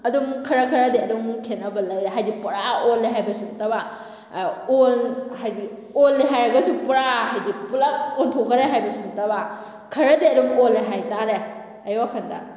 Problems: none marked